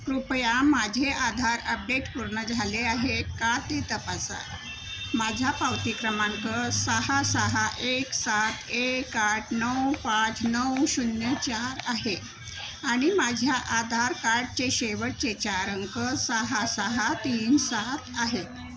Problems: constant background noise